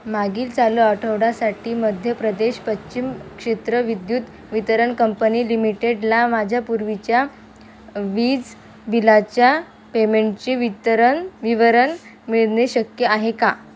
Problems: constant background noise